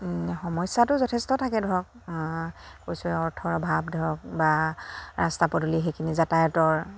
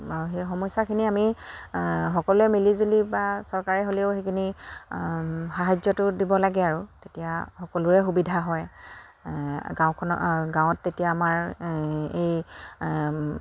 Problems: constant background noise, background conversations at intervals